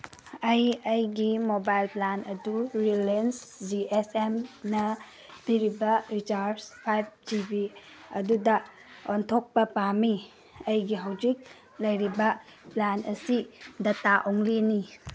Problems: none marked